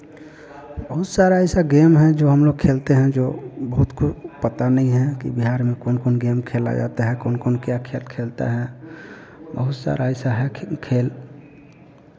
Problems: constant background noise